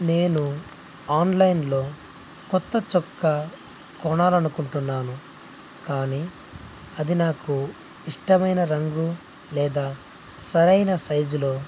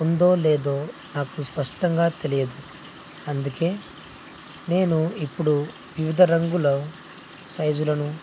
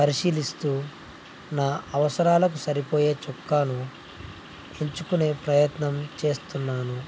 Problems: none marked